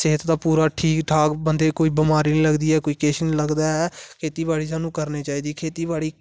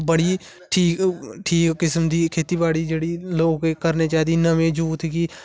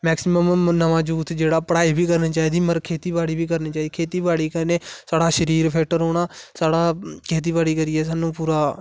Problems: none marked